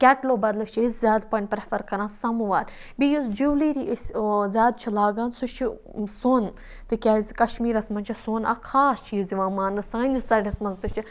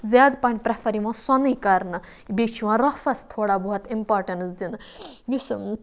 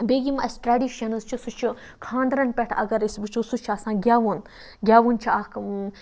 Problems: background sounds at intervals